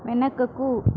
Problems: constant background noise